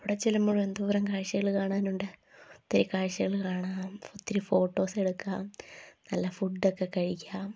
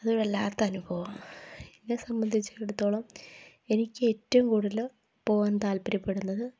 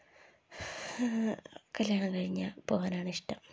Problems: background sounds at intervals, low volume